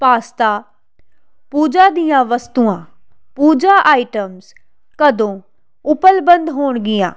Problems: constant background noise